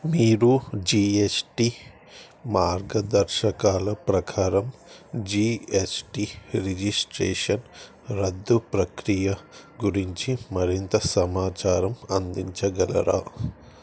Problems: none marked